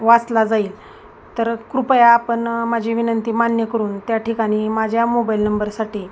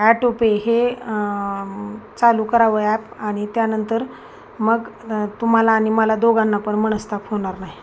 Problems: none marked